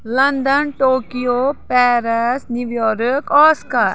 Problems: background sounds at intervals